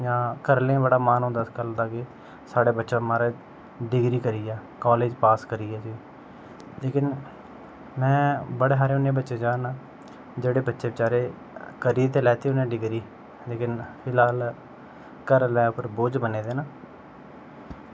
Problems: none marked